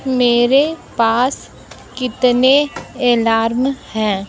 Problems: none marked